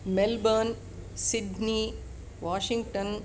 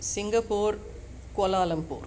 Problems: none marked